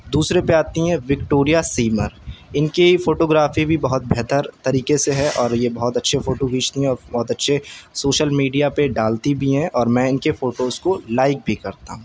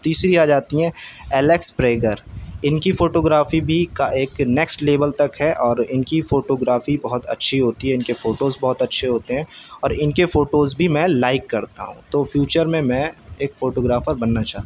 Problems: none marked